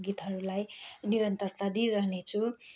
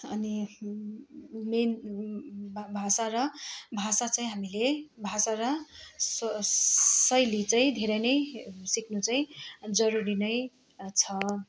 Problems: constant background noise, continuous background conversations